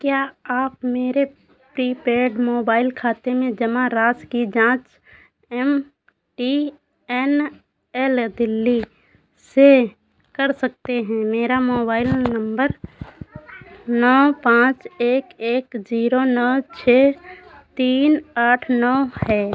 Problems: constant background noise